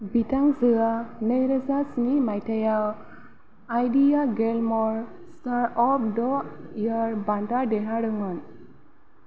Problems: none marked